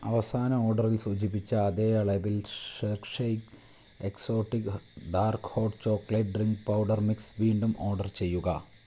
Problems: constant background noise, low volume